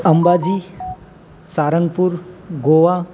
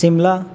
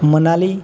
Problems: constant background noise